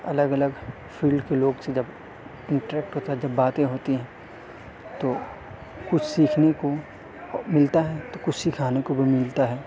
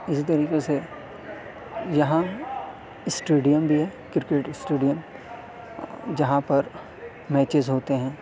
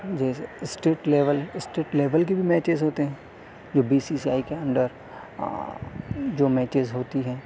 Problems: constant background noise